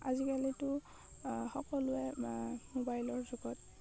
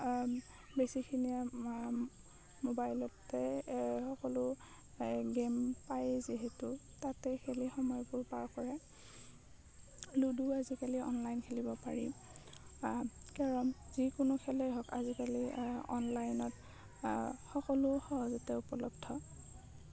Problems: low volume